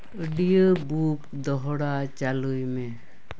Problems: none marked